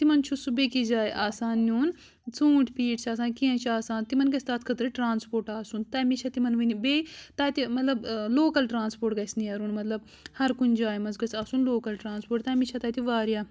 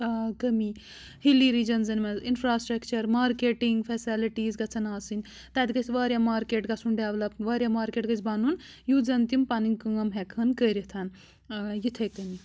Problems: none marked